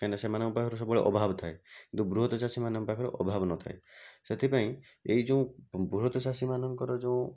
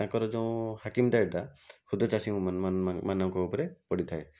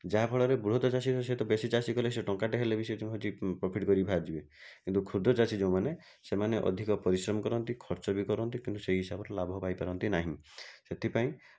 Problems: none marked